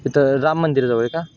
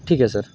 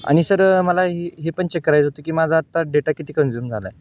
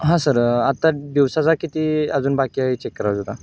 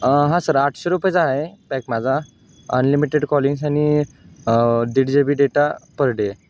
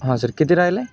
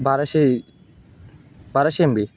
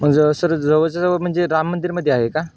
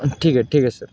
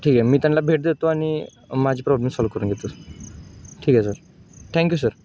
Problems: background sounds at intervals